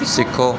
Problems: background conversations at intervals